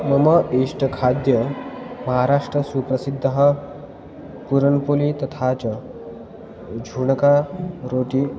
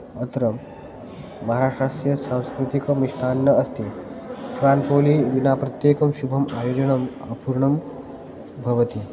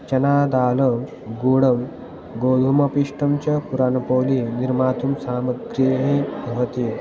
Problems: constant background noise, continuous background conversations